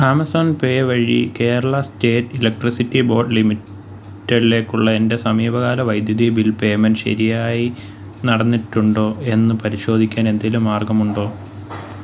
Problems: background sounds at intervals